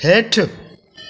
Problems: constant background noise, echo